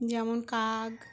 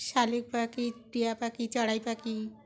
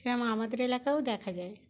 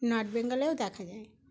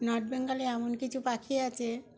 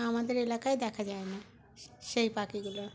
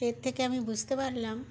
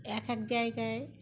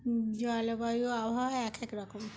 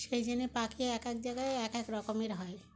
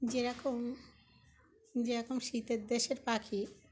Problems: constant background noise, background conversations at intervals